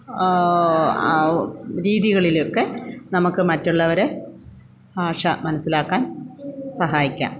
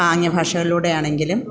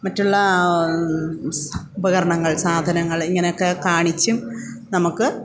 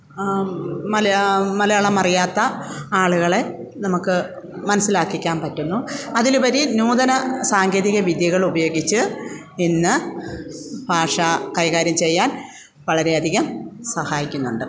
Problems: none marked